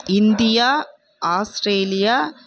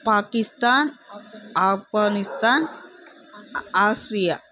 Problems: background sounds at intervals